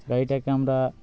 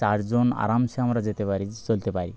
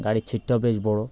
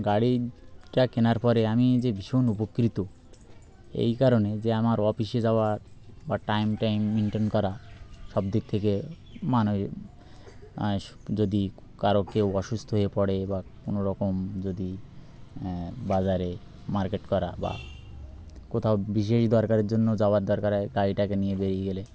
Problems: constant background noise